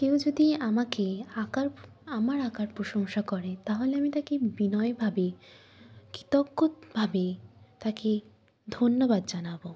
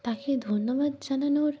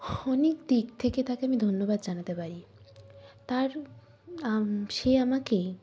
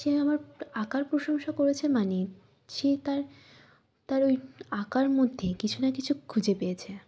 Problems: none marked